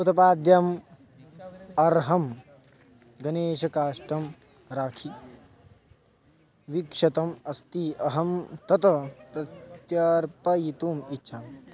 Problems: background conversations at intervals